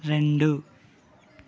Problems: constant background noise